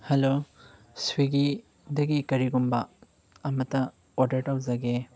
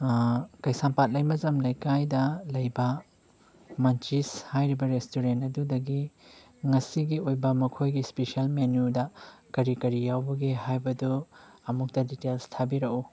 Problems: background sounds at intervals